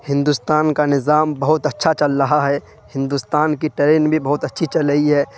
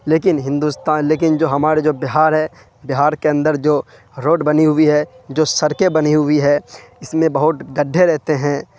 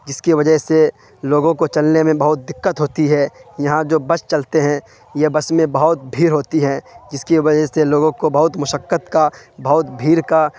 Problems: constant background noise